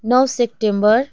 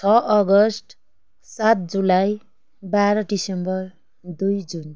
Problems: none marked